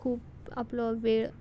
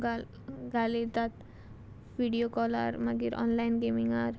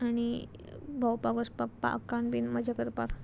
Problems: background sounds at intervals